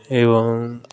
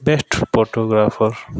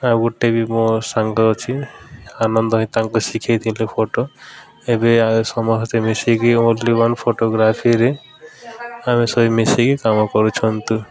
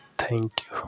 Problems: constant background noise, continuous background conversations